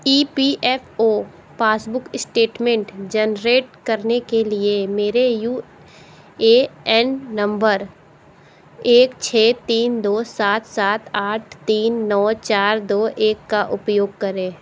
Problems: background sounds at intervals